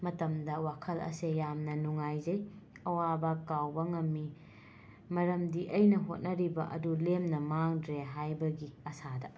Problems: constant background noise